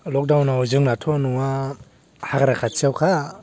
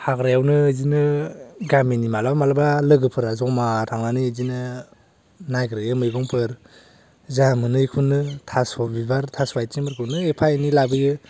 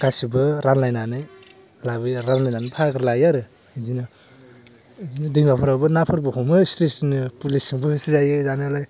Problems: low volume